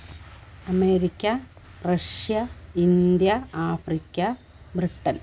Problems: constant background noise